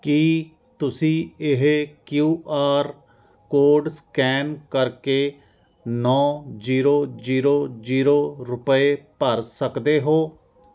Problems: constant background noise